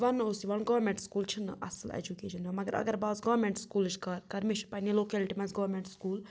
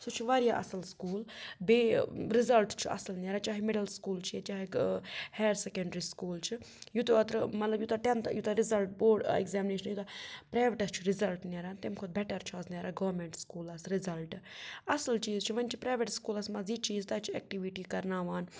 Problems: none marked